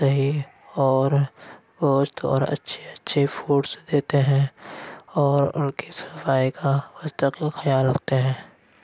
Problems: background sounds at intervals